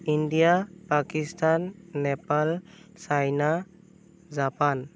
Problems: none marked